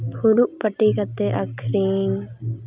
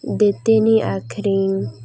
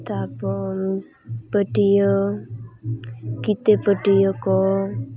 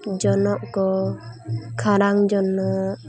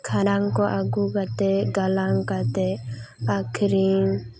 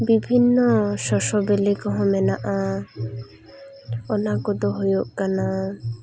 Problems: constant background noise, continuous background conversations